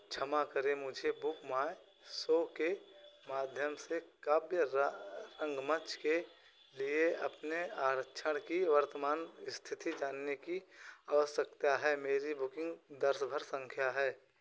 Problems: background sounds at intervals, echo